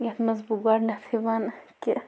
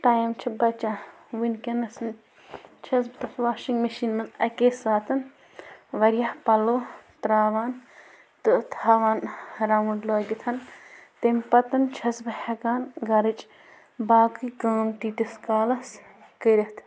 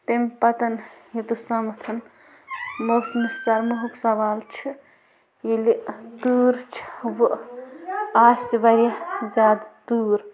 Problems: constant background noise, background conversations at intervals